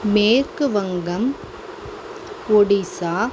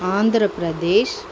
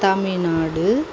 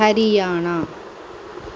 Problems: constant background noise